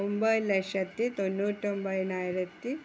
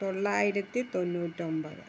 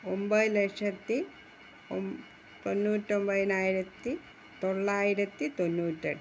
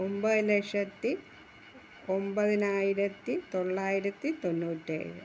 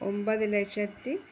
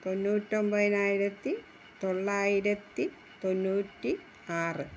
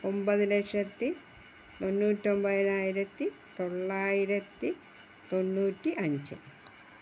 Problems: background sounds at intervals